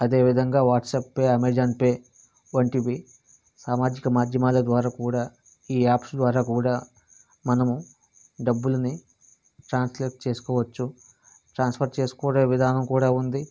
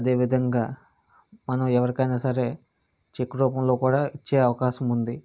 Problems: constant background noise